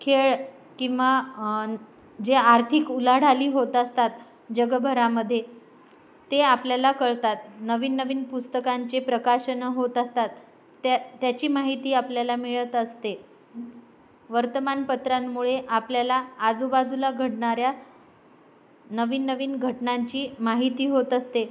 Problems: none marked